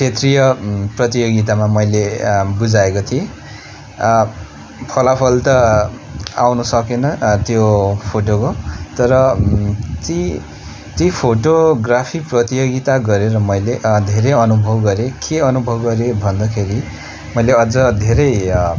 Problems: constant background noise, continuous background conversations